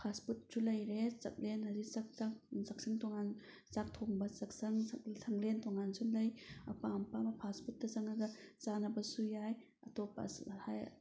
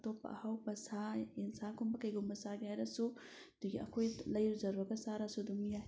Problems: background sounds at intervals